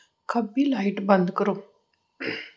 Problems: none marked